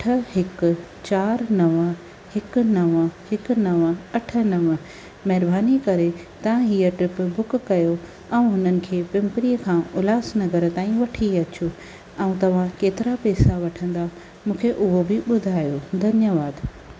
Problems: constant background noise